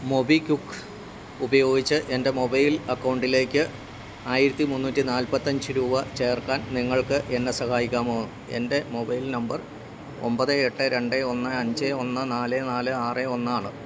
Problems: none marked